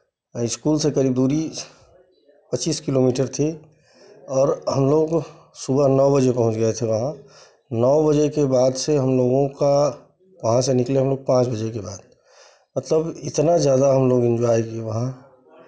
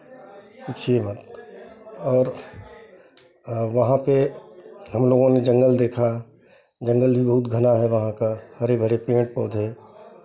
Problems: background sounds at intervals, background conversations at intervals